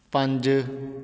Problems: constant background noise